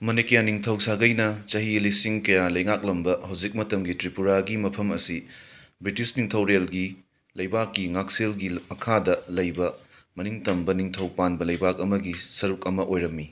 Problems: background sounds at intervals